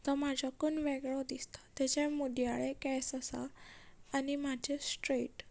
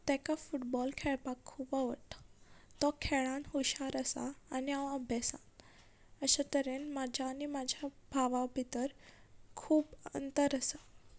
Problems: background conversations at intervals